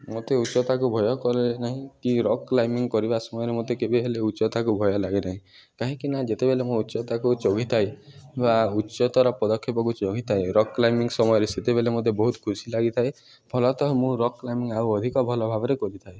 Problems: background sounds at intervals, background conversations at intervals